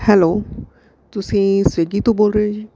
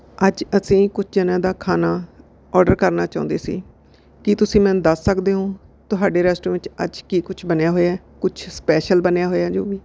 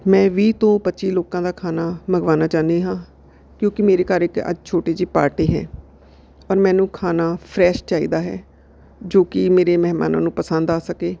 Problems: background sounds at intervals